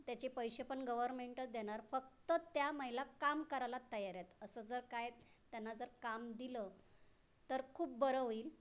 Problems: constant background noise, background conversations at intervals